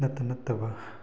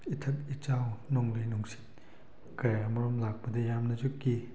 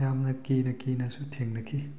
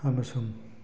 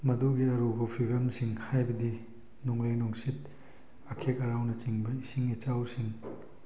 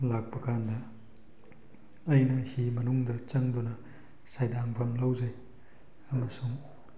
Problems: none marked